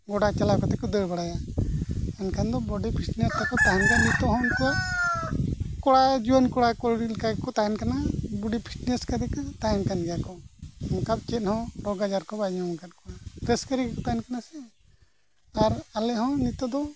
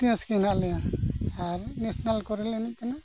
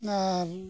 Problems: background sounds at intervals